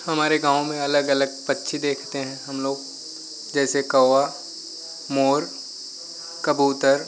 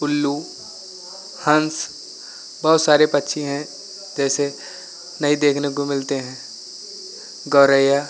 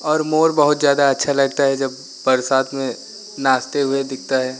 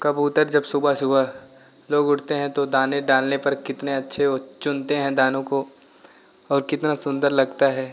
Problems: none marked